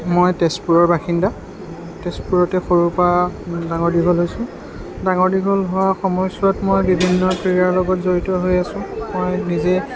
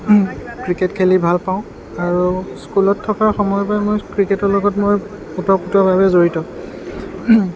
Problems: background sounds at intervals, continuous background conversations